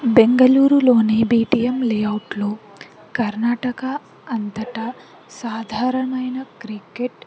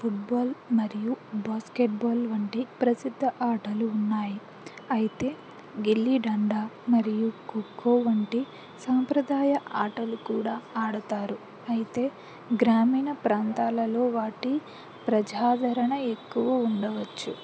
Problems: constant background noise